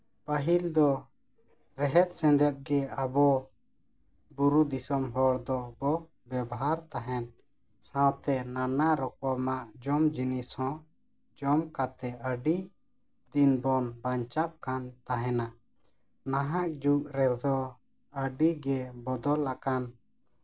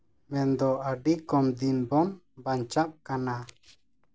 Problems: none marked